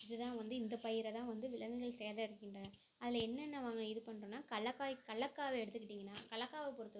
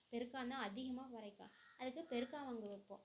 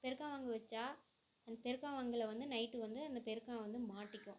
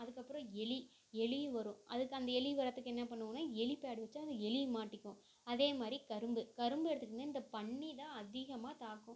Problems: constant background noise